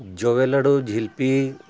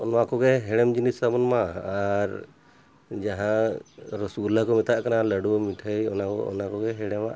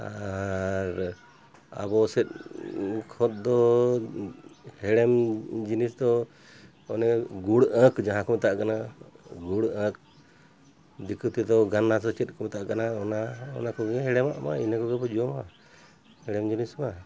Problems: constant background noise